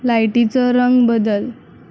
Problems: constant background noise, low volume